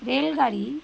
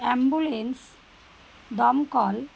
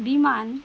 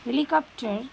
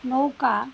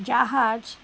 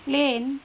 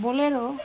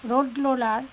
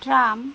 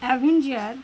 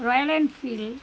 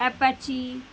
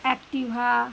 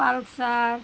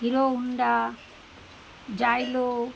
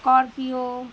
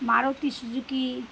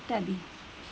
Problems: background sounds at intervals